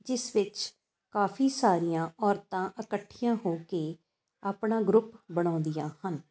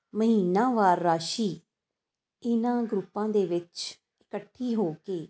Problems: constant background noise